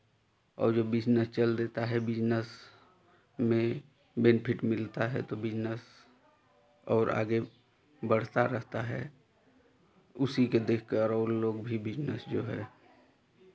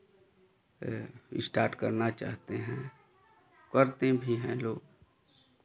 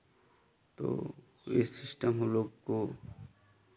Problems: constant background noise